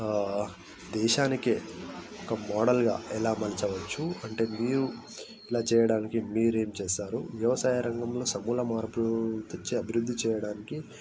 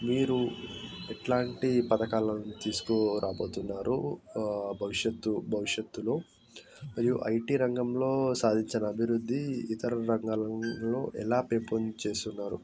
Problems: none marked